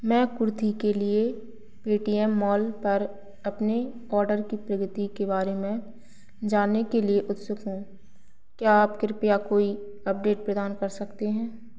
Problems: none marked